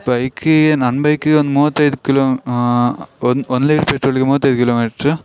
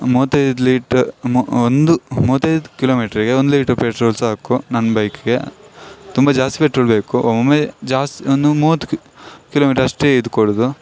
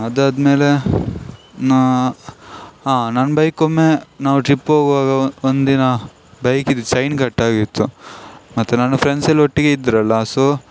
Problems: none marked